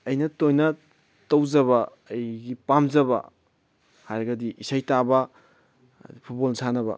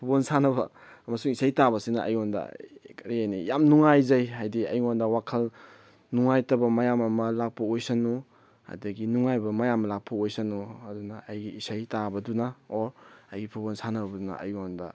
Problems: none marked